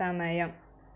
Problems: none marked